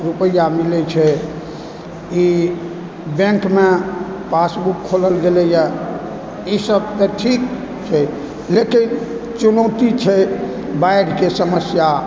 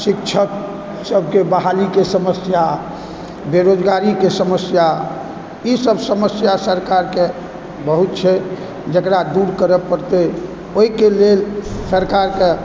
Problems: background sounds at intervals, background conversations at intervals